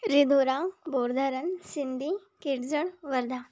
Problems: background sounds at intervals